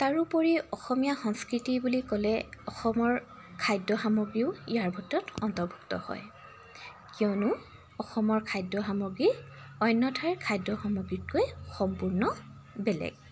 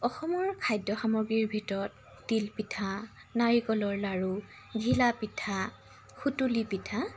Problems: constant background noise